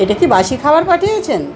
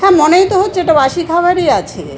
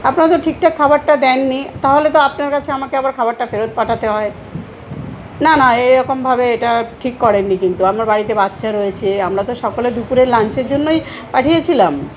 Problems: constant background noise, background conversations at intervals